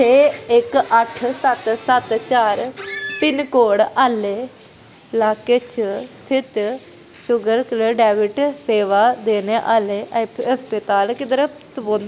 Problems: constant background noise